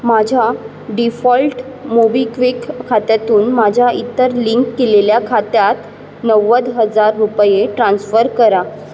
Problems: constant background noise